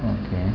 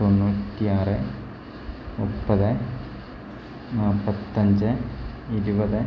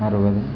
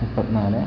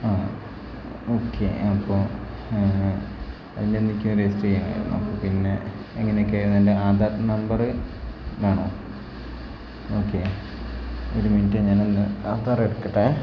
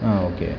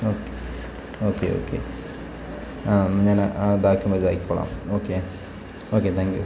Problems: constant background noise